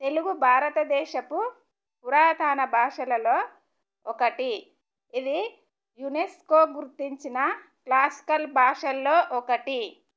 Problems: none marked